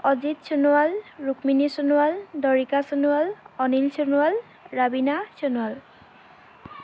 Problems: constant background noise